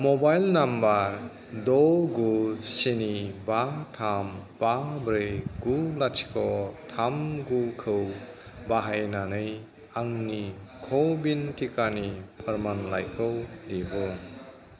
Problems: constant background noise